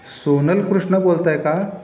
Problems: none marked